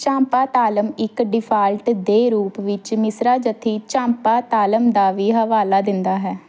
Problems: none marked